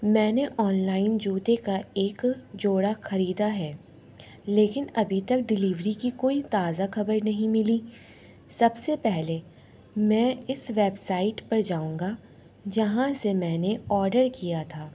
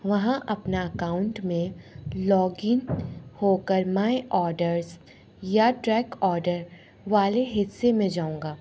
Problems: none marked